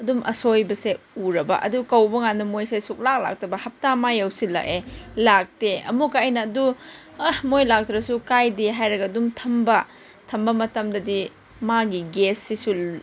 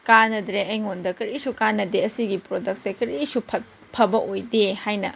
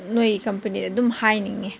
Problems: background sounds at intervals